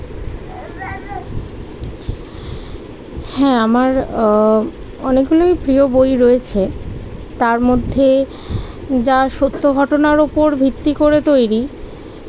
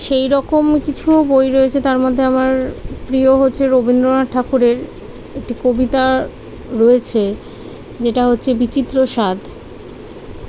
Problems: constant background noise, background conversations at intervals